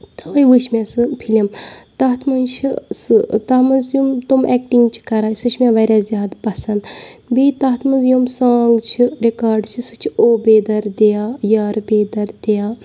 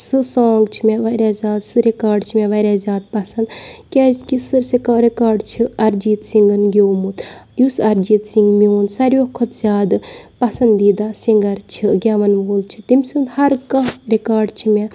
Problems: none marked